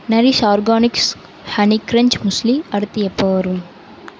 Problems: constant background noise